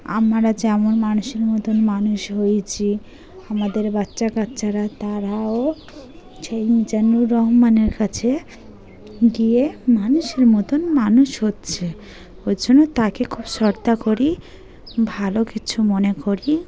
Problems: background sounds at intervals, continuous background conversations